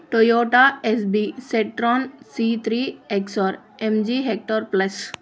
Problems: constant background noise